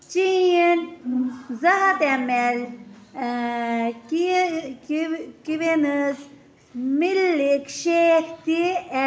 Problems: constant background noise, continuous background conversations